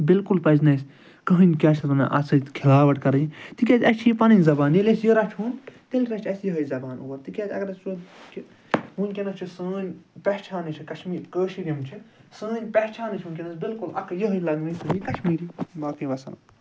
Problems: background sounds at intervals